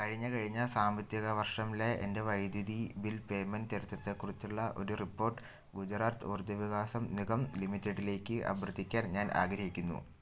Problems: none marked